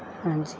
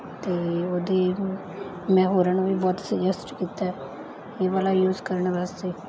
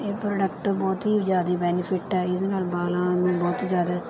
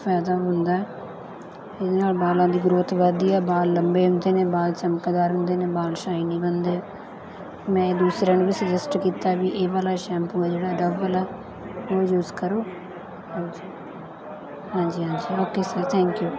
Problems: continuous background conversations